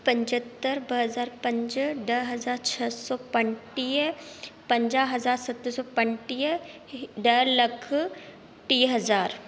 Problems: constant background noise, echo